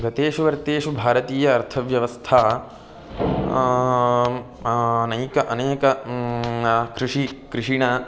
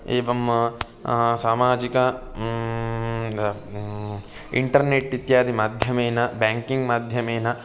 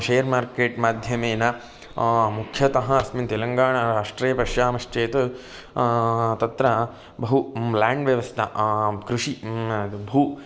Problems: constant background noise